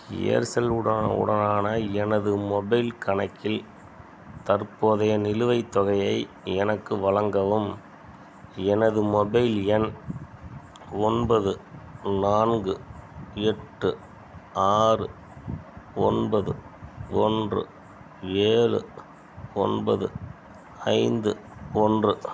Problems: none marked